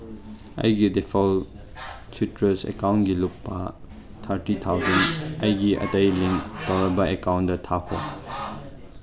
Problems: constant background noise, background conversations at intervals